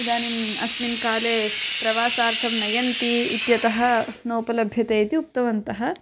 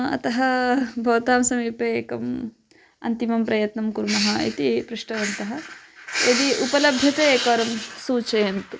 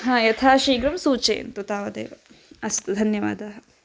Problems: constant background noise